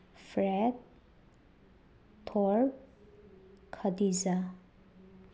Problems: none marked